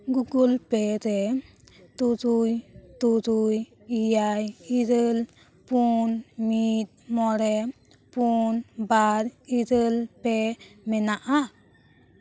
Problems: background conversations at intervals